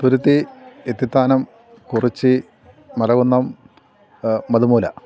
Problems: none marked